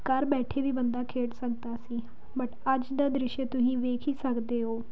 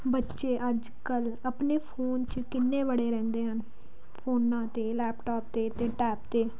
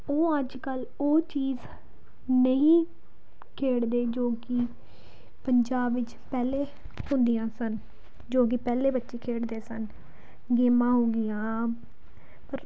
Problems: none marked